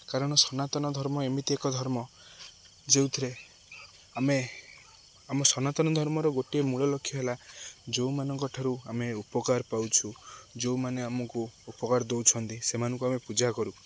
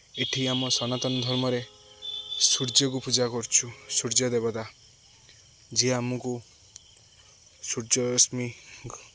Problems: none marked